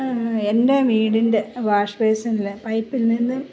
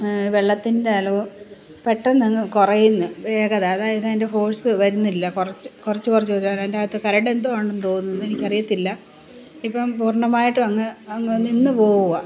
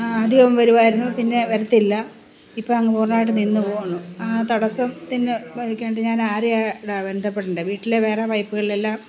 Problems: background sounds at intervals